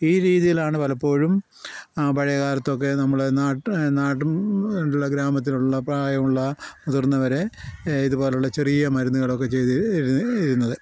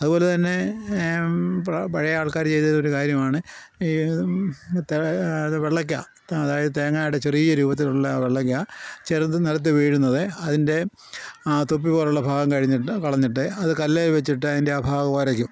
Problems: none marked